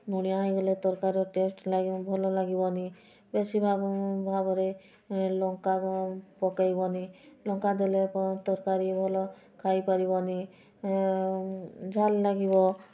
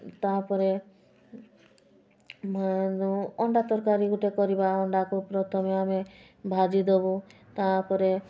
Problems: constant background noise